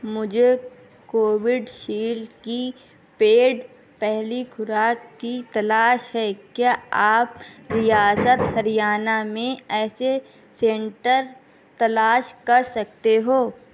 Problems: background sounds at intervals